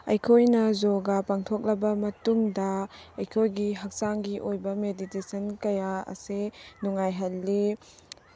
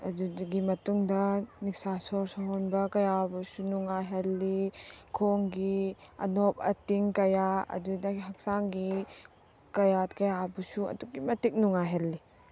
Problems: none marked